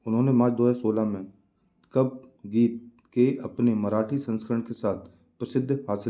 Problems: background sounds at intervals